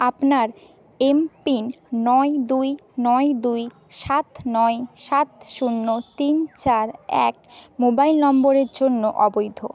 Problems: background sounds at intervals